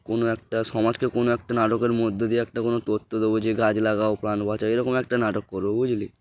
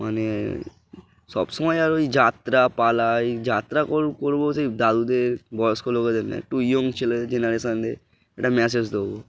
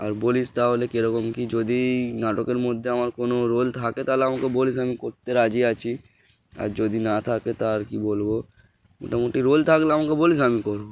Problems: background sounds at intervals, background conversations at intervals